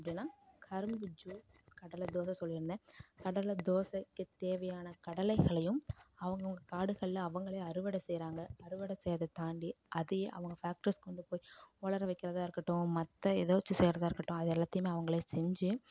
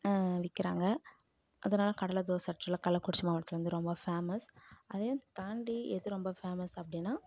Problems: none marked